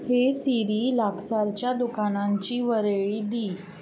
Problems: none marked